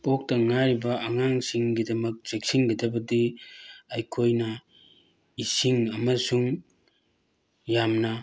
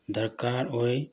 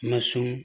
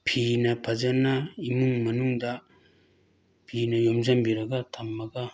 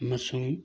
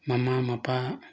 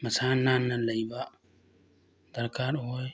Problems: none marked